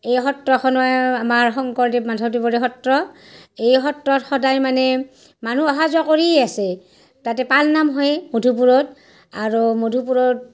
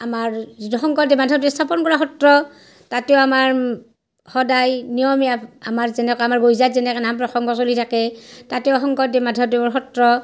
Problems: none marked